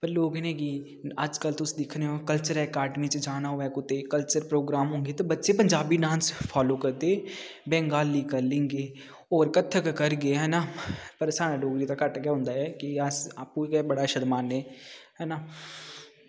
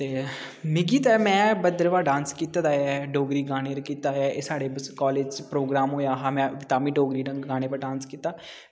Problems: none marked